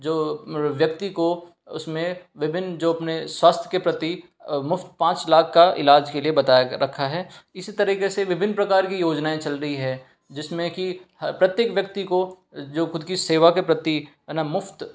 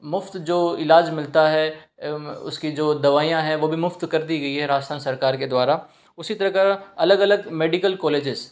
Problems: background sounds at intervals